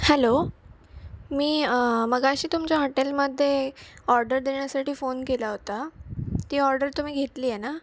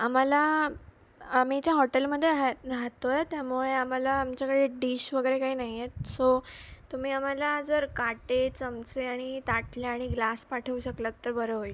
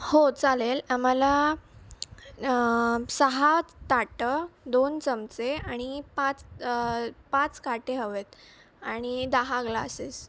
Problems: none marked